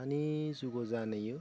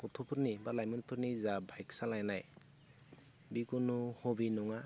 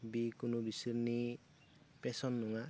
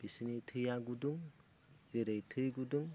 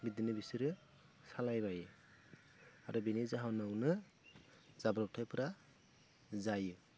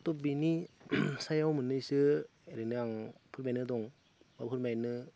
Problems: constant background noise